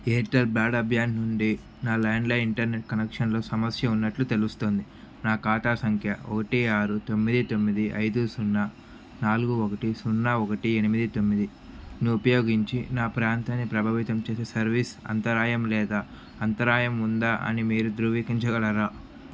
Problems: constant background noise